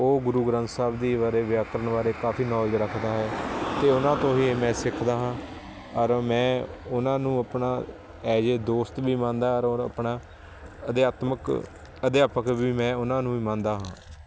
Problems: constant background noise